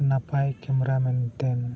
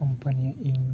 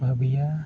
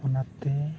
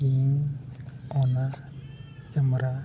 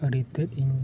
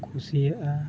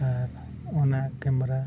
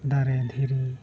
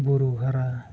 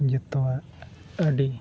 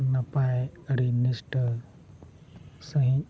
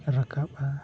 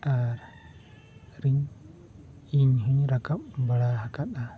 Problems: none marked